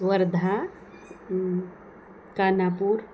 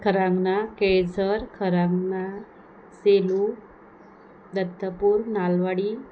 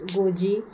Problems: none marked